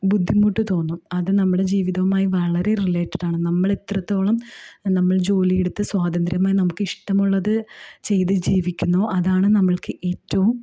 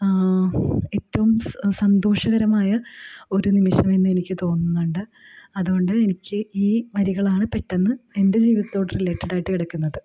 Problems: low volume